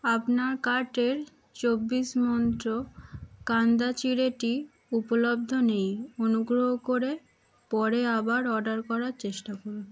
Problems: background sounds at intervals